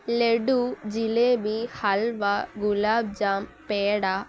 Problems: none marked